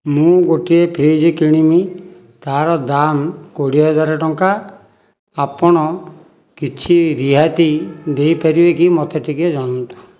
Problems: background sounds at intervals